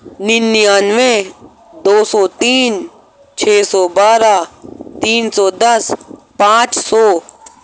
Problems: constant background noise